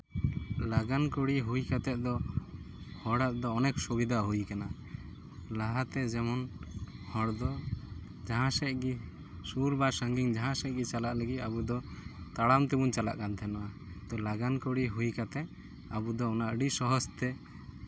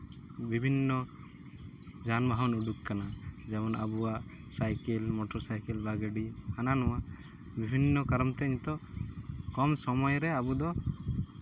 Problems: none marked